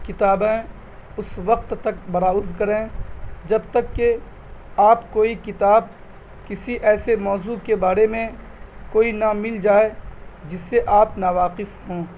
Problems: none marked